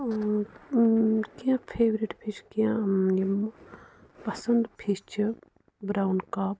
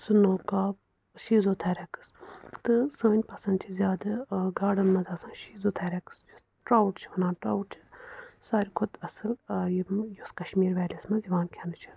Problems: background sounds at intervals